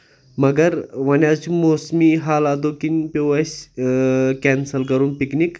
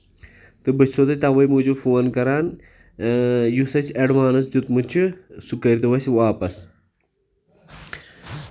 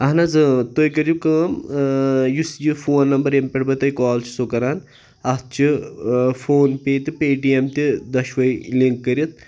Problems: background conversations at intervals